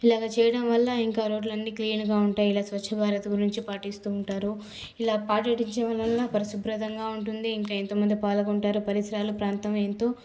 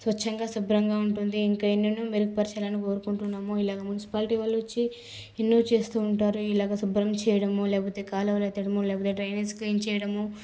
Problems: background sounds at intervals